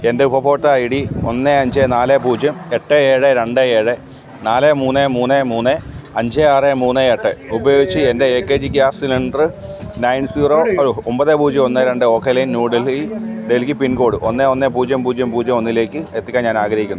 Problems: constant background noise